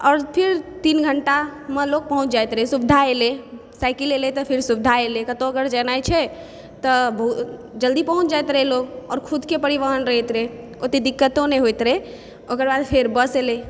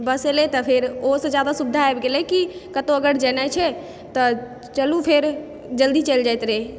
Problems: background sounds at intervals